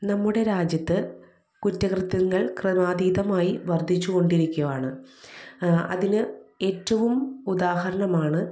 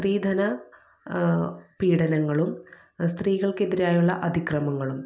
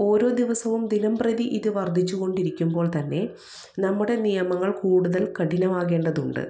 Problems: low volume